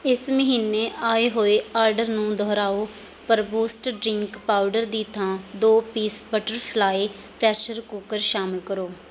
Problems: none marked